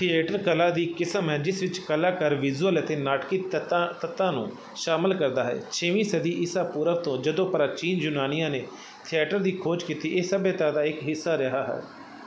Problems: none marked